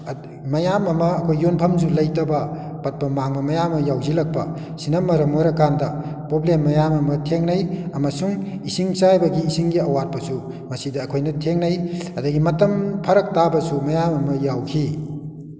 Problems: echo